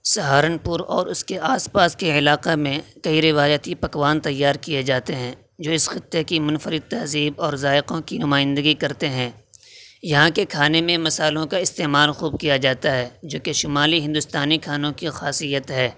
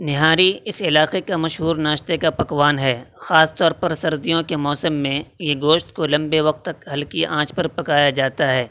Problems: constant background noise